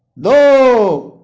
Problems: background sounds at intervals